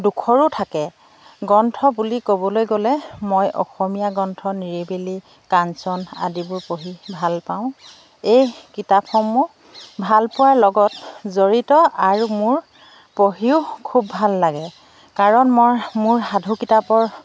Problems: none marked